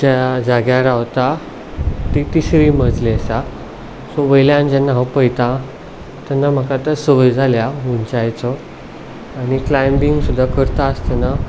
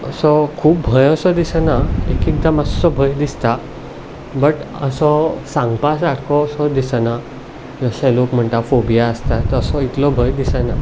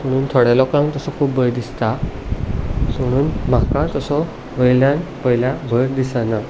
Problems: none marked